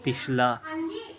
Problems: background sounds at intervals